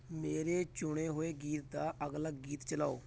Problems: constant background noise